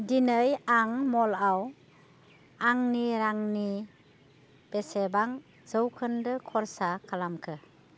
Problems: constant background noise